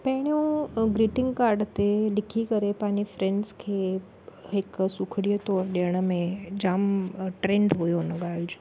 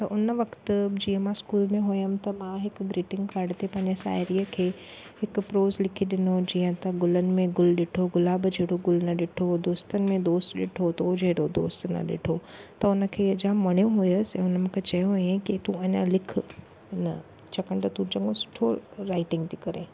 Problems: none marked